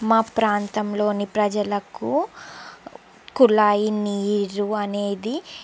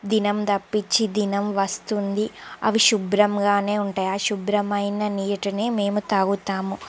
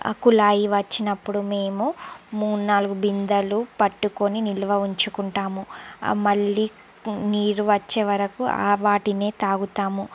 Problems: background sounds at intervals